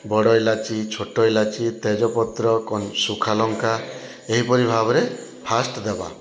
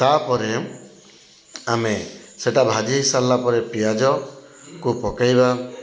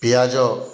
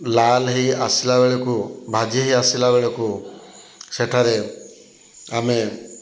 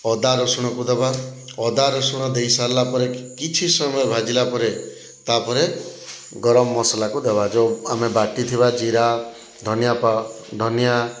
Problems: none marked